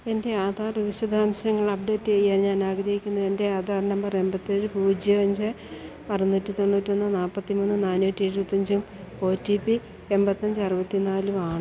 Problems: constant background noise